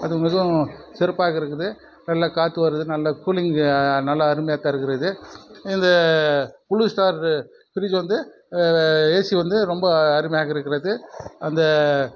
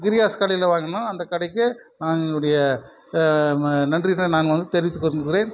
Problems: constant background noise